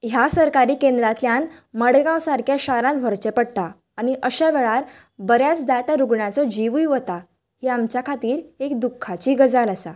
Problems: none marked